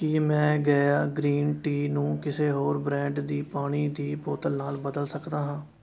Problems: continuous background conversations